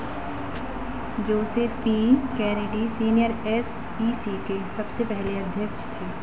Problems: constant background noise